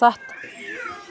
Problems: constant background noise